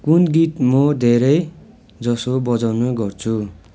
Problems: continuous background conversations